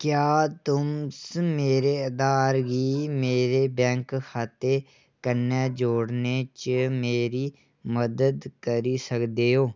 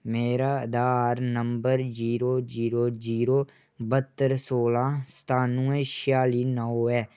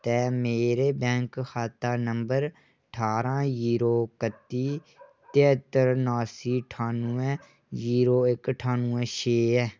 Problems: none marked